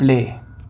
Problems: constant background noise